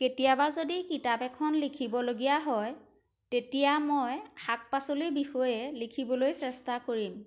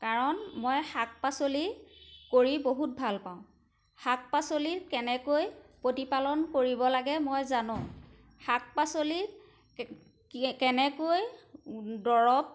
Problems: background sounds at intervals